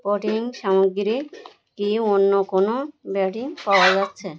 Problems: background sounds at intervals